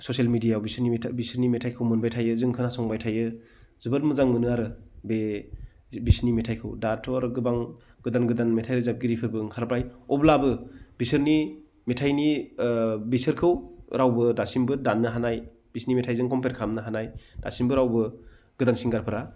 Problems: low volume